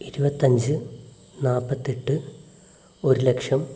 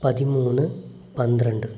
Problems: background sounds at intervals, low volume